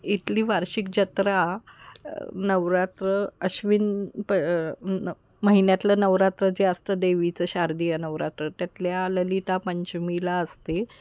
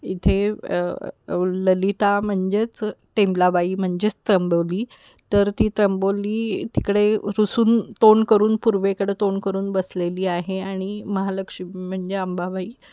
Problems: constant background noise